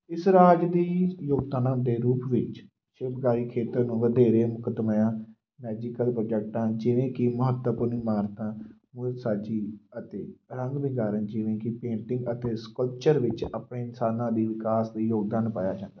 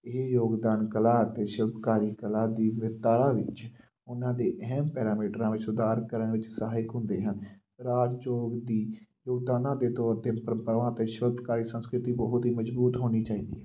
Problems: background sounds at intervals